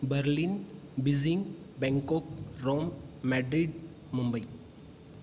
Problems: none marked